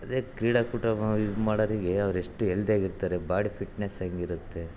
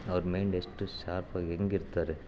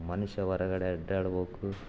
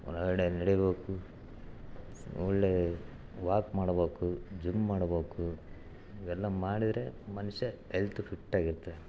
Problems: background sounds at intervals